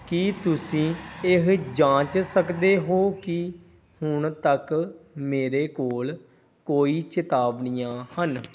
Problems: background sounds at intervals